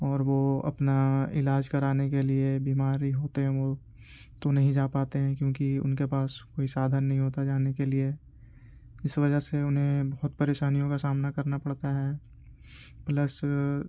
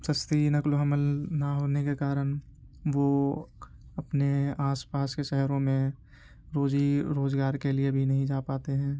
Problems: constant background noise